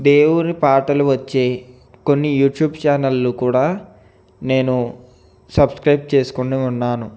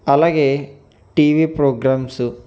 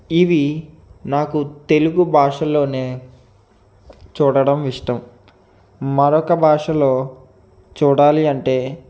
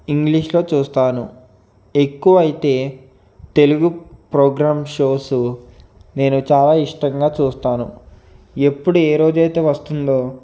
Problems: background sounds at intervals